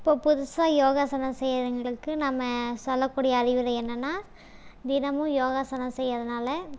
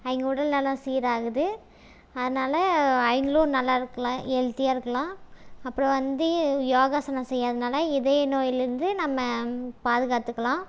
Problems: none marked